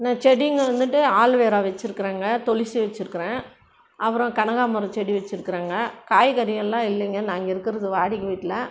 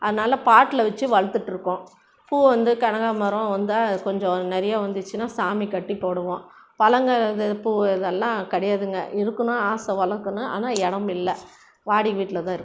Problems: constant background noise